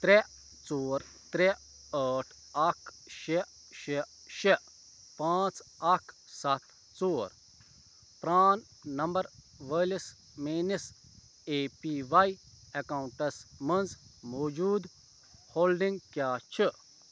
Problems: constant background noise